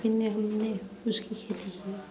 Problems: constant background noise, continuous background conversations